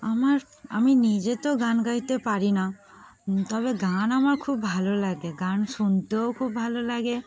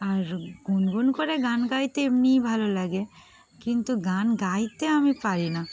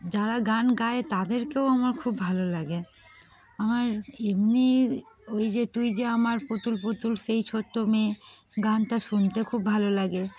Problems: background sounds at intervals, background conversations at intervals